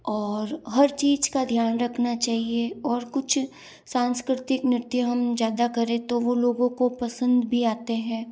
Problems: none marked